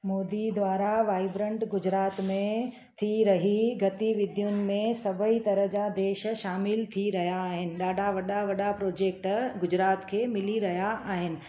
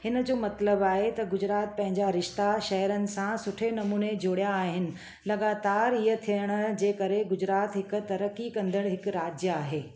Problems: constant background noise, echo